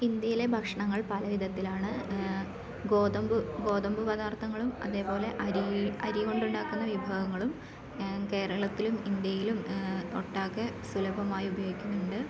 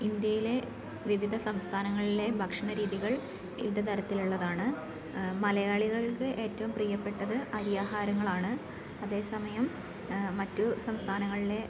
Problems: none marked